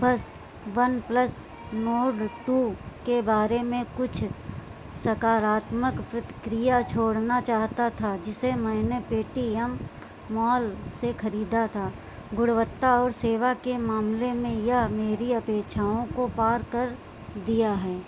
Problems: constant background noise